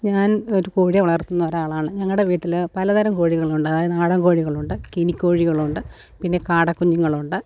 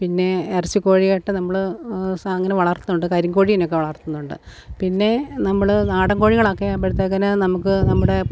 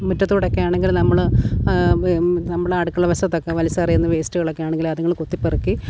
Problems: none marked